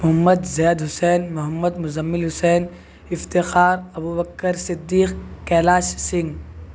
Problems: constant background noise